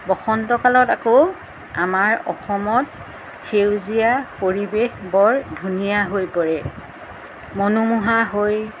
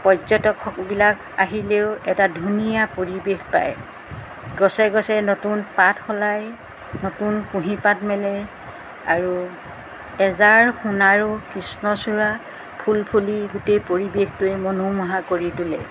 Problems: background sounds at intervals